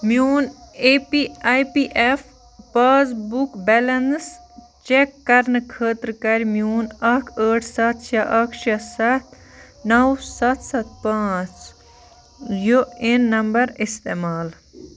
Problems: continuous background conversations